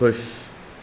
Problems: constant background noise